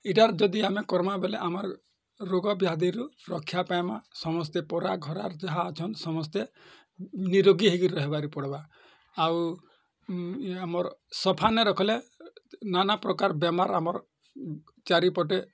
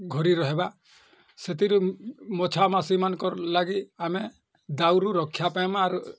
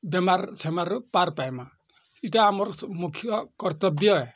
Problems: none marked